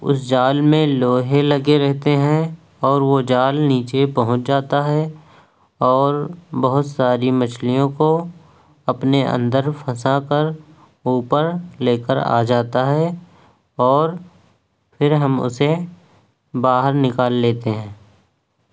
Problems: none marked